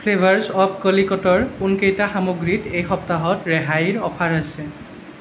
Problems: none marked